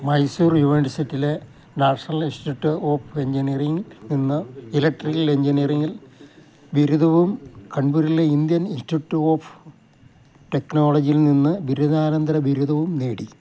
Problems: none marked